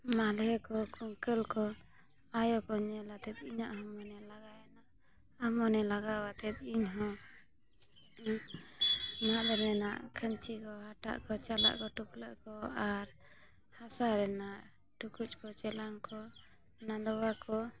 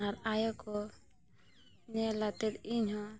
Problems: none marked